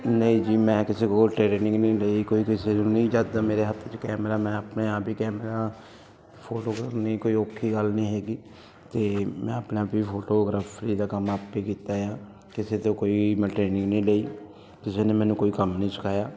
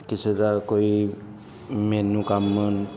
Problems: continuous background conversations